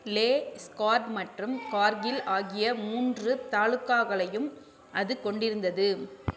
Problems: background sounds at intervals